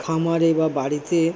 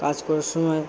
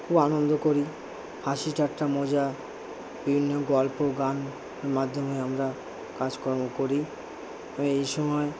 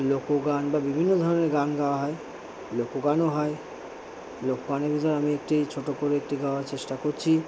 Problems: none marked